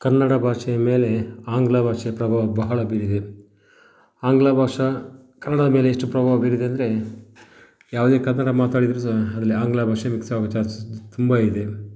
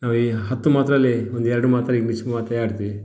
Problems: none marked